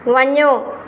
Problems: constant background noise, echo